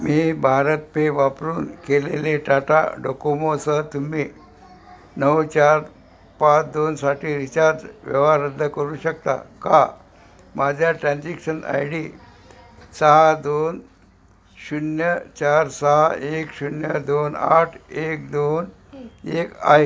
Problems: none marked